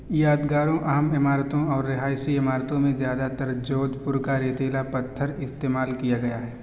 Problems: constant background noise